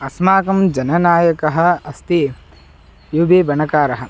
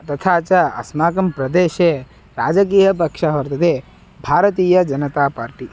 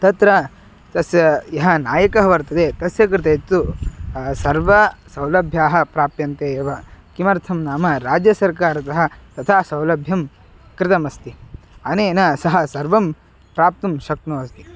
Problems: background sounds at intervals